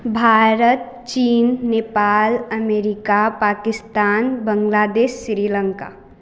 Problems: none marked